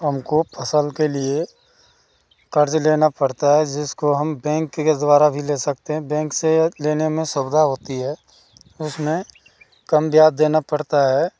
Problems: constant background noise